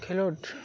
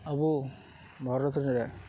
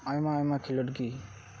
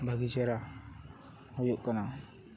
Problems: none marked